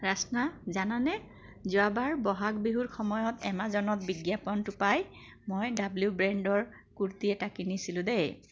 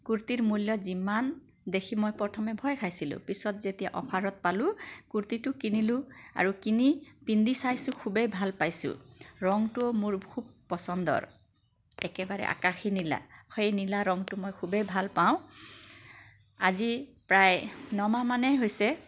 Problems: constant background noise